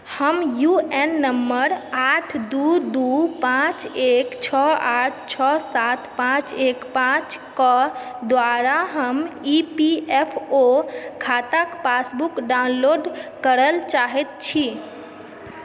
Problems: background sounds at intervals, background conversations at intervals